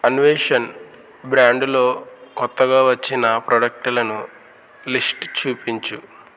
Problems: constant background noise